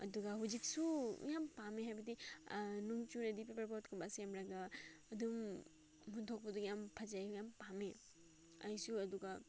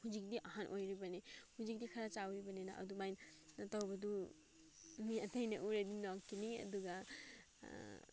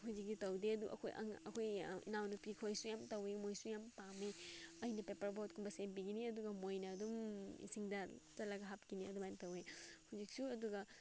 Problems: background sounds at intervals